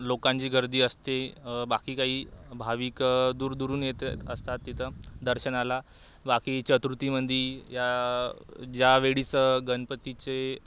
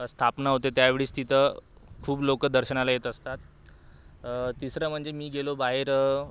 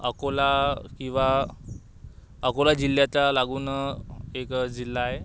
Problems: constant background noise